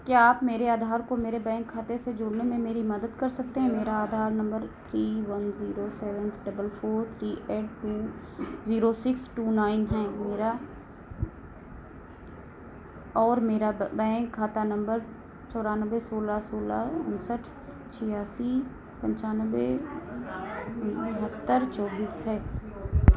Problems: none marked